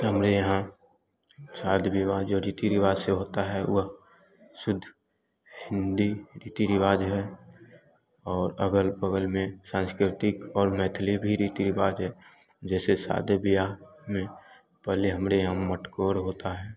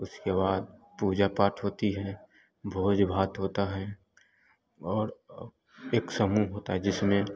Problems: background sounds at intervals, continuous background conversations